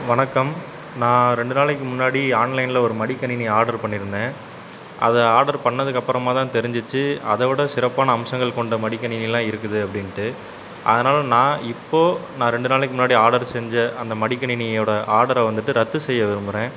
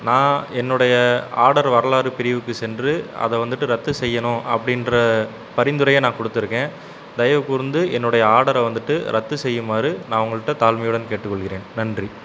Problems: constant background noise